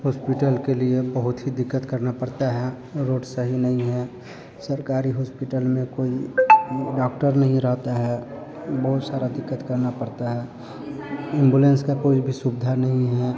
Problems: none marked